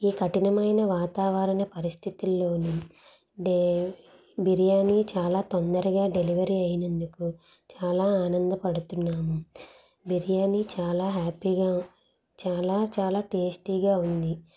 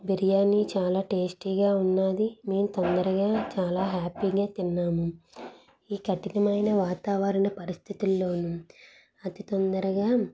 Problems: none marked